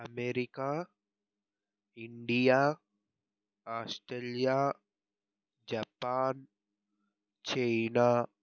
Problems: low volume